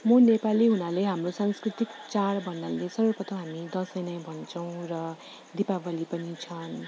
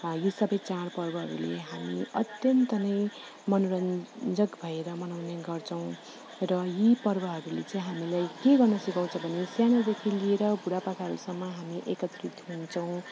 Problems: constant background noise